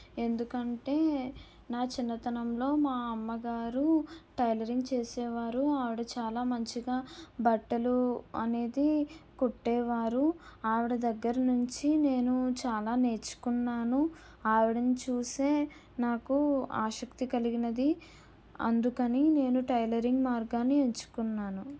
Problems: low volume